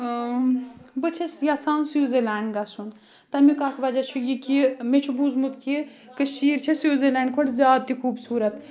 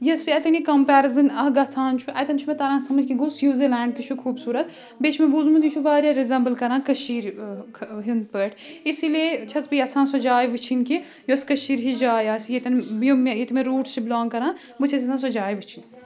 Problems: background sounds at intervals, background conversations at intervals